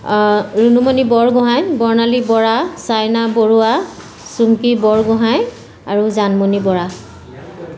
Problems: constant background noise